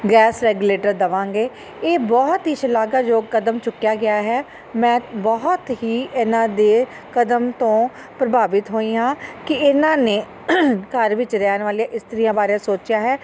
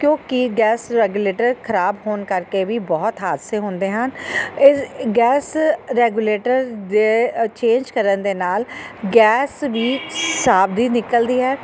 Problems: none marked